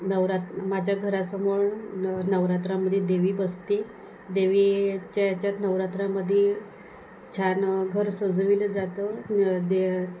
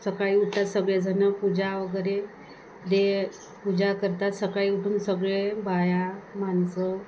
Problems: constant background noise